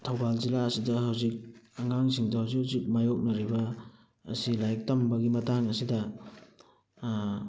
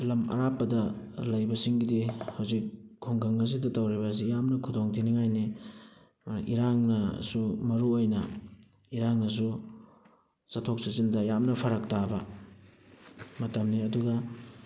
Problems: background sounds at intervals, background conversations at intervals